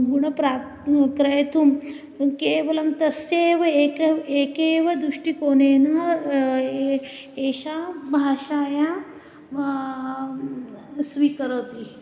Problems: background conversations at intervals